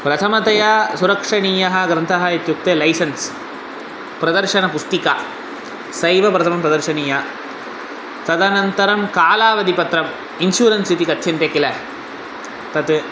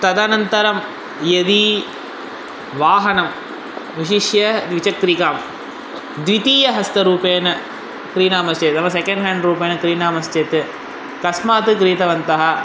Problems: constant background noise